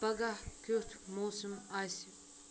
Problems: constant background noise